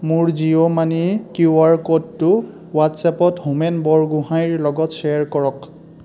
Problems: constant background noise, background conversations at intervals